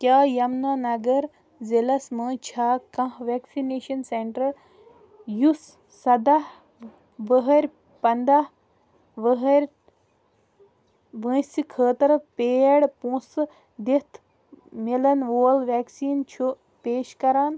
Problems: none marked